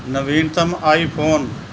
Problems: constant background noise